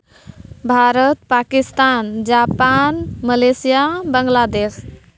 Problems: none marked